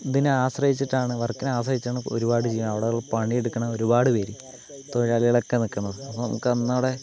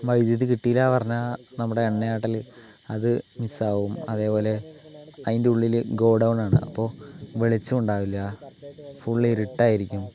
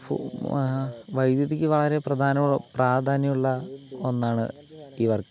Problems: background conversations at intervals, low volume